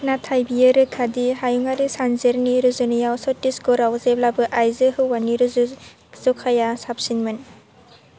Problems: none marked